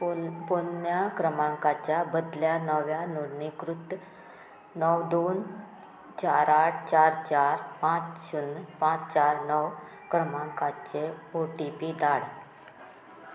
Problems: constant background noise